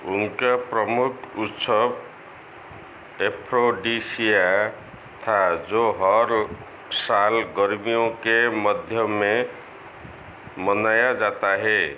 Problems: none marked